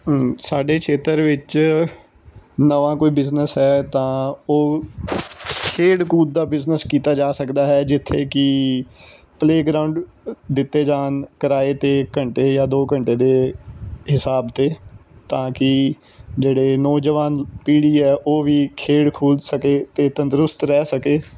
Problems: constant background noise